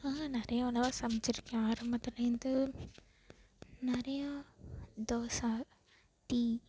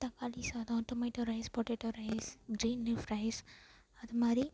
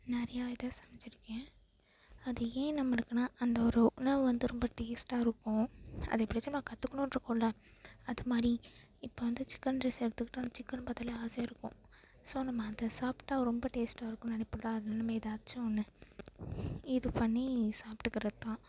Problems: background sounds at intervals